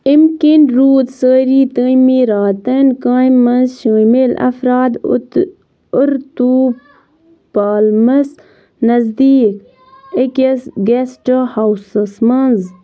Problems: background sounds at intervals, background conversations at intervals